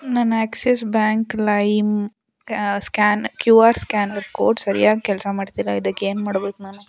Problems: background conversations at intervals